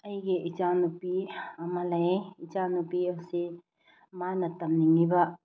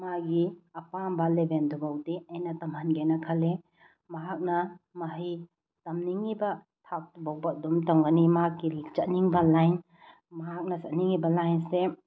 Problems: low volume